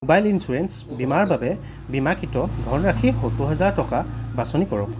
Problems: none marked